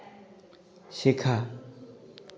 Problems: none marked